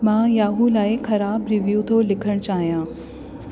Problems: constant background noise